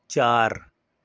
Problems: none marked